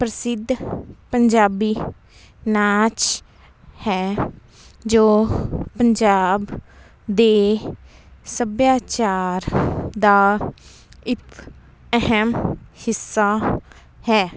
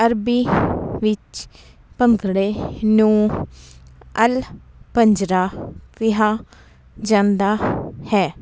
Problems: constant background noise